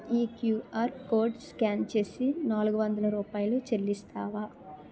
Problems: none marked